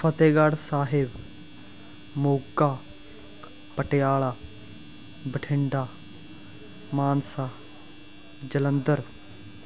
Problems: constant background noise